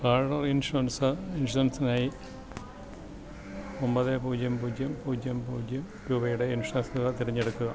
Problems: background sounds at intervals, low volume